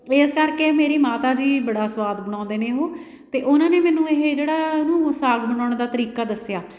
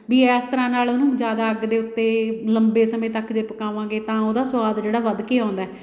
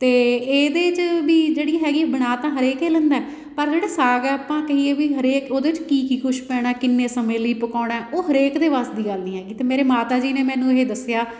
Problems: background sounds at intervals